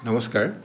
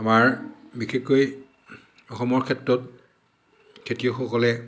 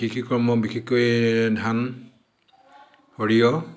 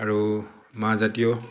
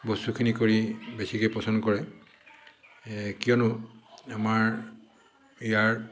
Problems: background sounds at intervals, echo